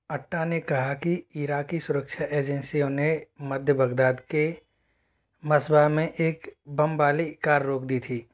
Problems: none marked